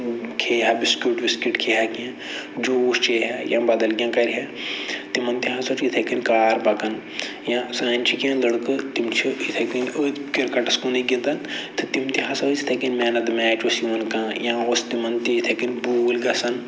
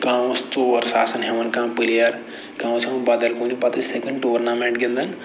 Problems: low volume